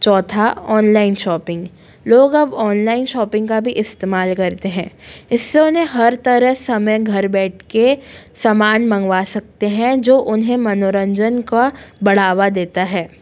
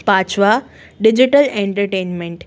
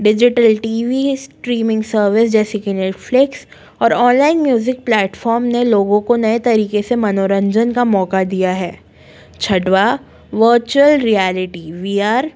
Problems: none marked